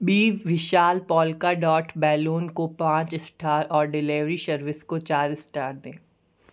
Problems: none marked